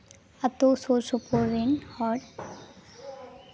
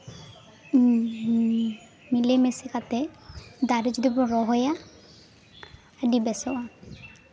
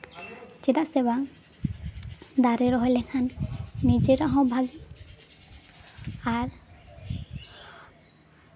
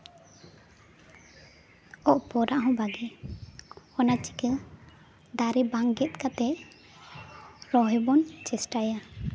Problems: constant background noise, continuous background conversations